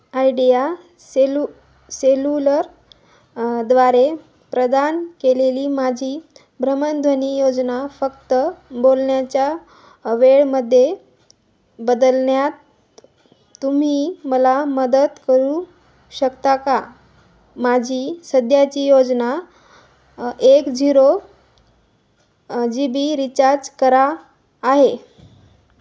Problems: none marked